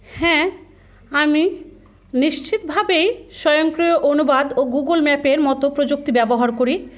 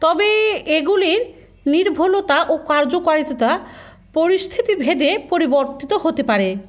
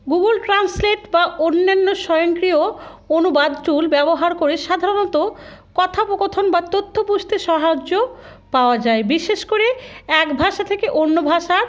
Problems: constant background noise